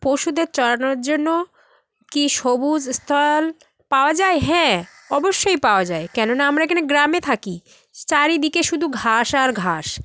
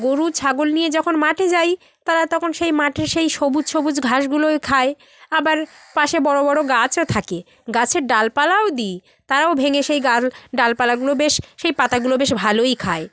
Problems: constant background noise